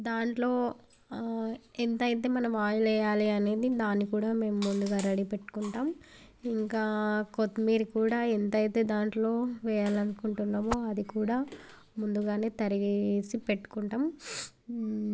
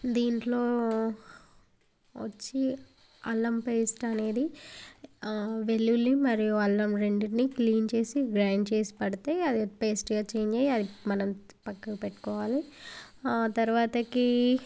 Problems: background sounds at intervals